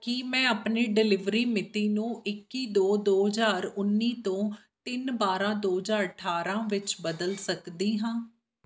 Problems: background sounds at intervals